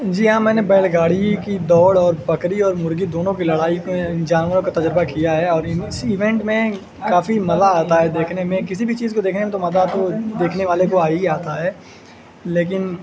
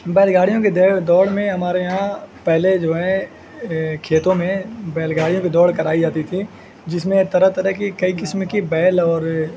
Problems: constant background noise